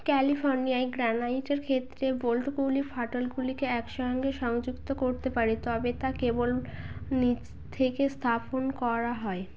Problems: constant background noise